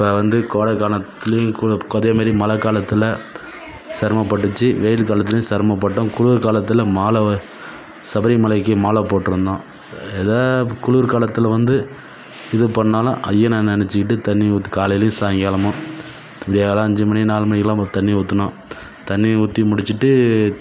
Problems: background sounds at intervals